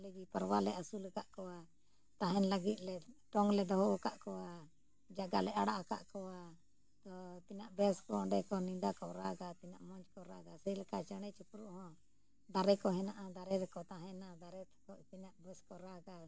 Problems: low volume